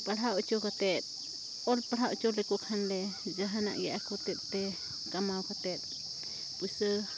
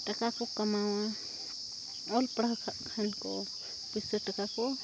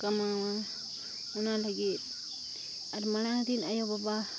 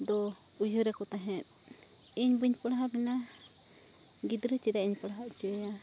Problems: constant background noise